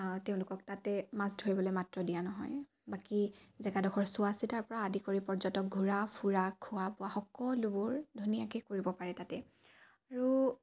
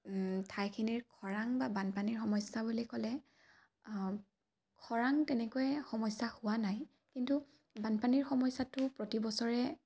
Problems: none marked